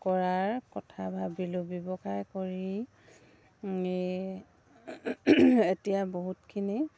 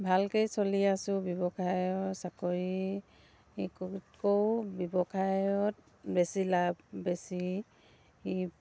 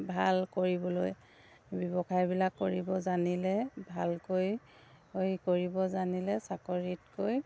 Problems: none marked